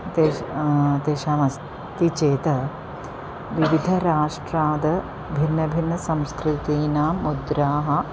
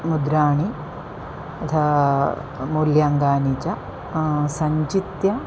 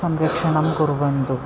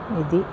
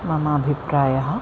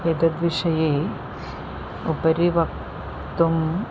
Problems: constant background noise